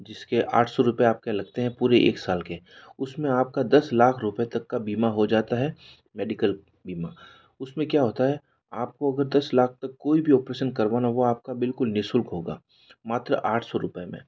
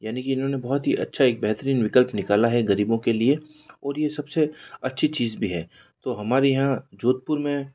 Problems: none marked